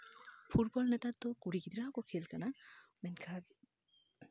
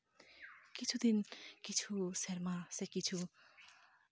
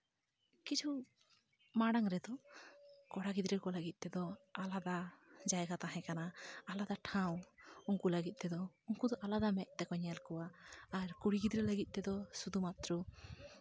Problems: none marked